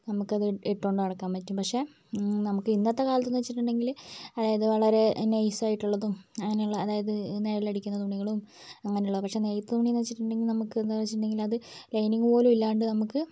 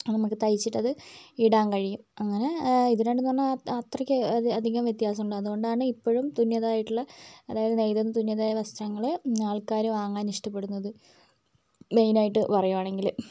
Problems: low volume